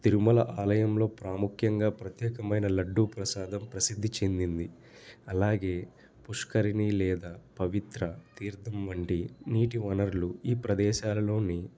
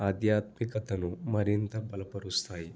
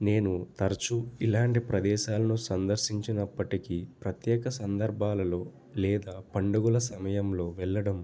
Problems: none marked